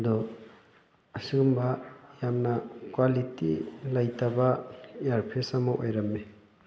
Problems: background sounds at intervals, continuous background conversations